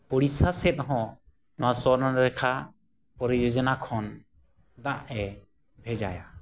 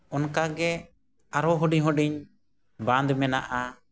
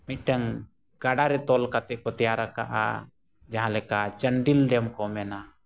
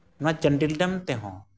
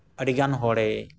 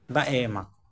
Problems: none marked